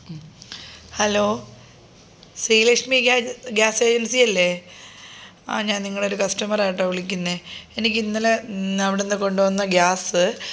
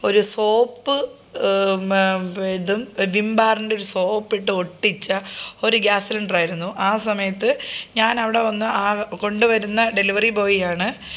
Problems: none marked